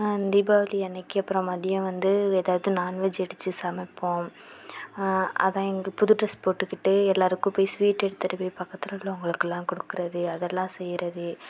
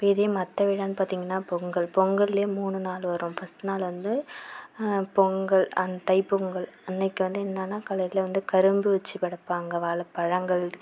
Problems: none marked